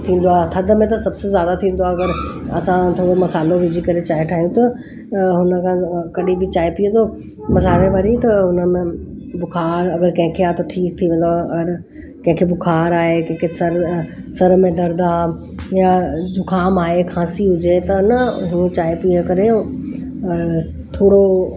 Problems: constant background noise